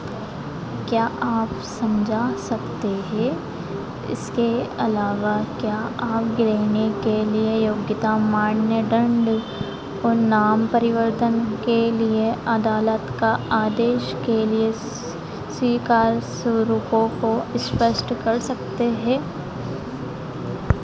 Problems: none marked